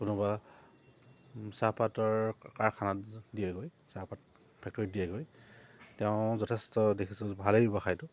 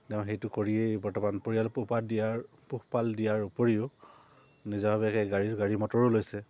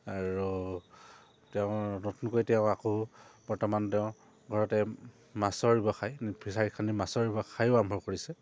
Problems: low volume